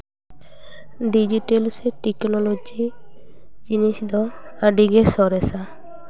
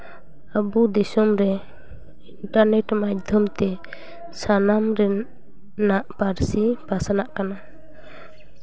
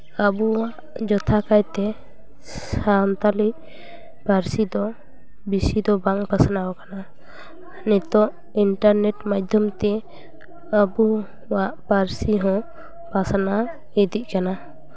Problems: none marked